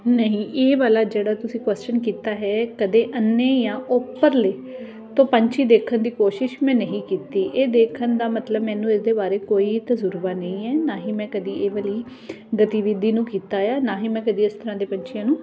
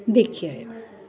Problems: background sounds at intervals